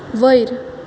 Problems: none marked